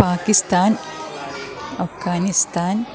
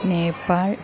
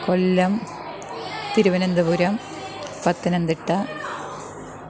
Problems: continuous background conversations